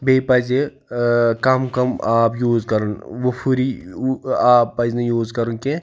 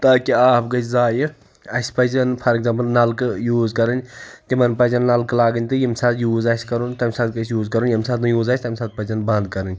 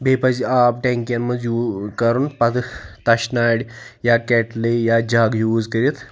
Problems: background conversations at intervals